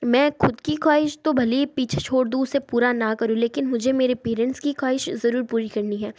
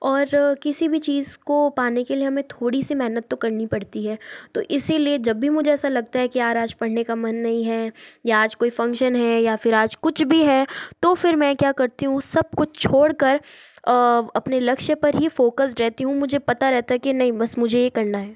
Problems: none marked